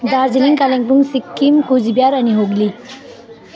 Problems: continuous background conversations